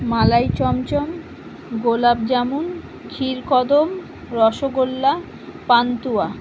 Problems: constant background noise